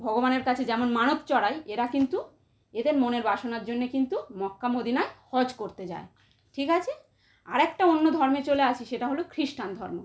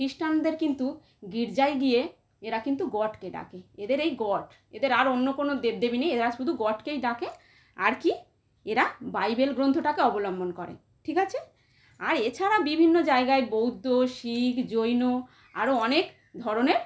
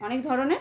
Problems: none marked